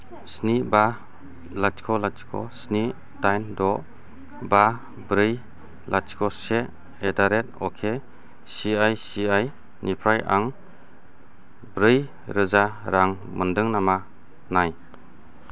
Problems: none marked